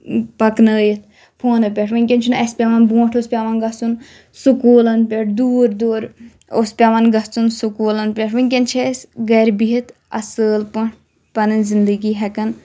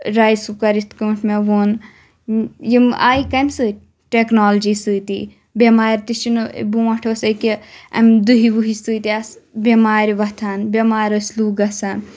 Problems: none marked